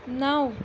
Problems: none marked